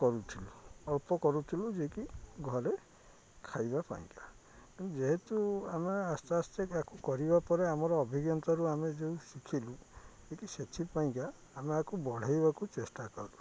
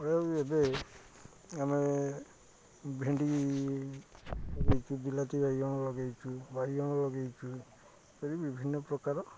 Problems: none marked